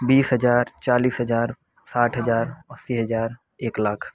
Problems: constant background noise